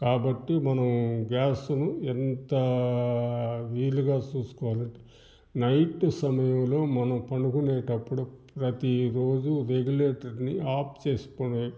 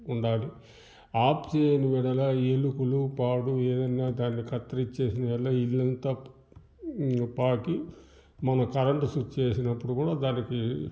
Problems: background sounds at intervals